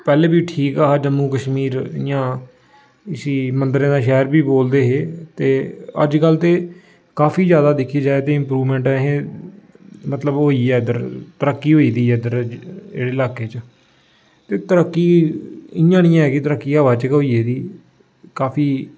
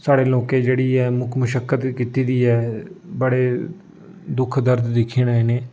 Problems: constant background noise